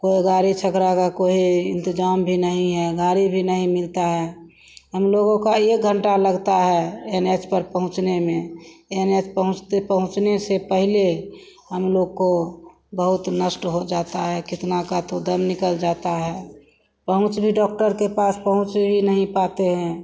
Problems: constant background noise